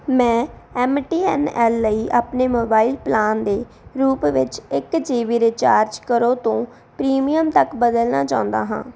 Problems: background sounds at intervals